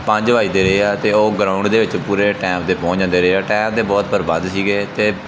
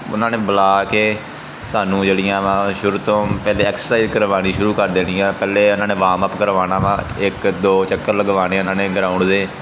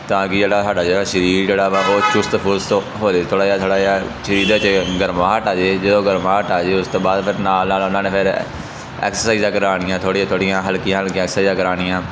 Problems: background sounds at intervals